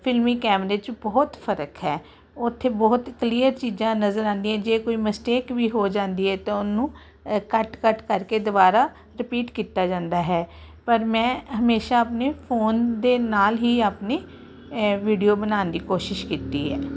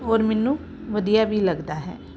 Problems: constant background noise